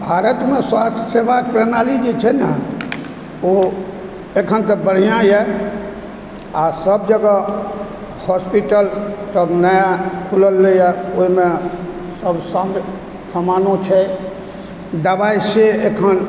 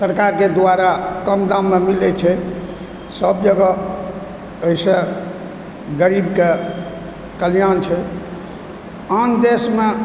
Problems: constant background noise